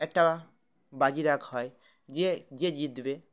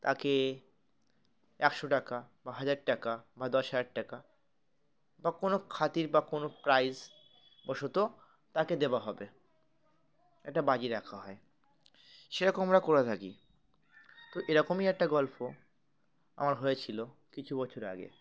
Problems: background sounds at intervals, continuous background conversations